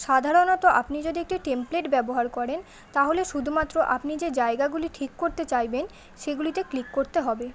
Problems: none marked